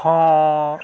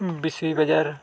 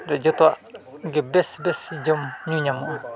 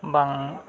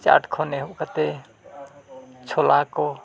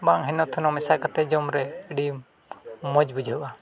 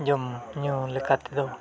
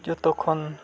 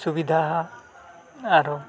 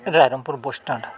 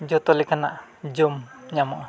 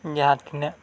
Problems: background sounds at intervals, continuous background conversations